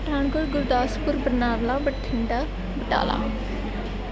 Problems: none marked